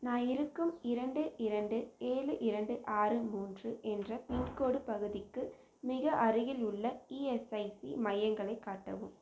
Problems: none marked